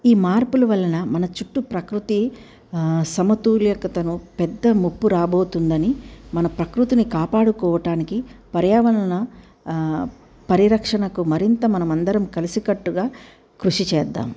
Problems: none marked